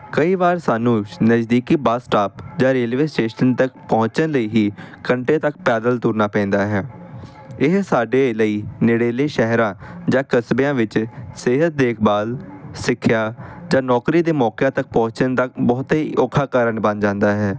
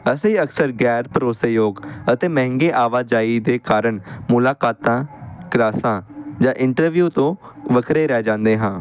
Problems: constant background noise